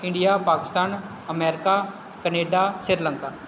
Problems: constant background noise